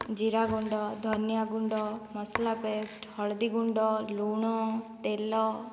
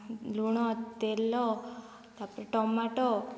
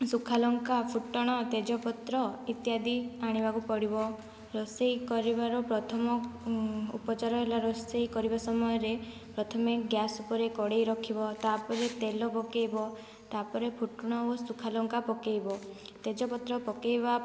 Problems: low volume